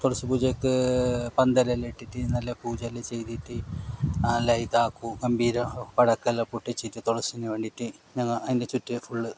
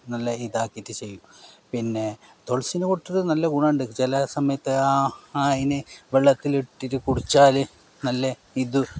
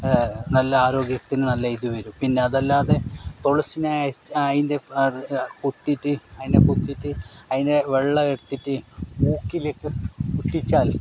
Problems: background sounds at intervals